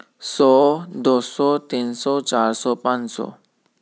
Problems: none marked